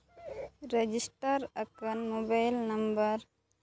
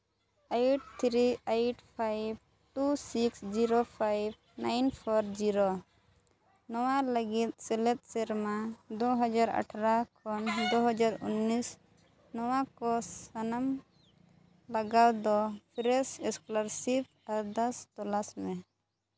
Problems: none marked